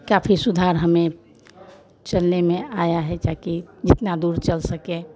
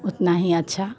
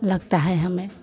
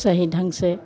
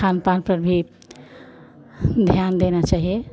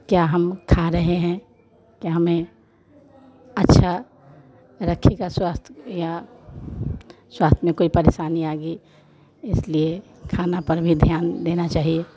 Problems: none marked